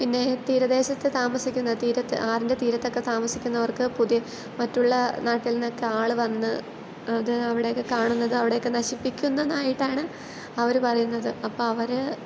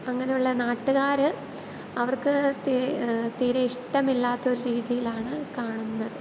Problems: constant background noise